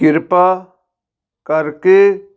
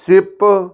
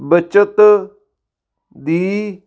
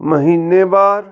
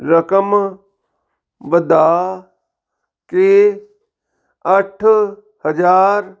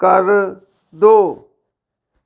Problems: none marked